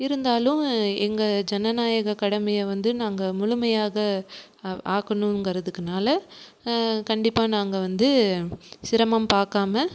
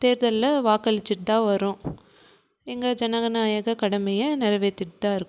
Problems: none marked